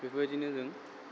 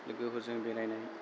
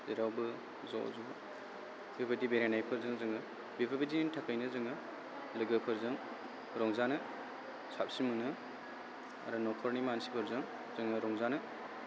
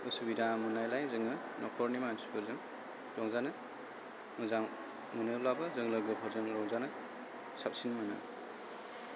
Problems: constant background noise